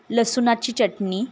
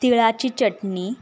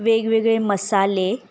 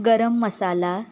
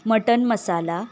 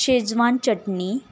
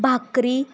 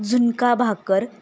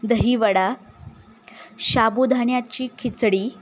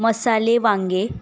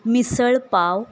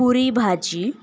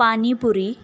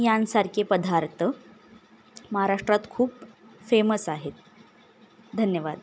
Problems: background sounds at intervals